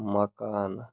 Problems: none marked